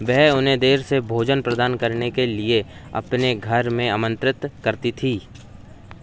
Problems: none marked